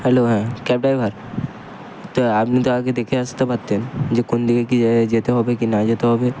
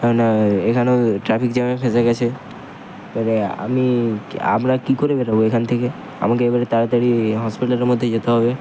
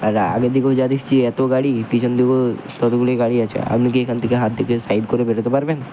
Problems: constant background noise